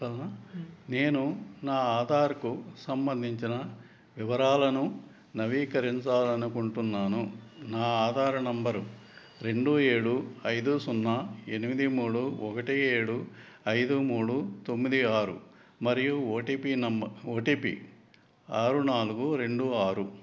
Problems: background conversations at intervals